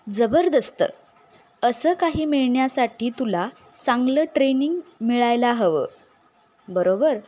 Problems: none marked